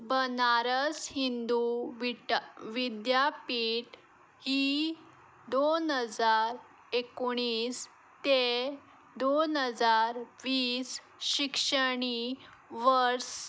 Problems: none marked